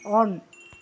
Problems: constant background noise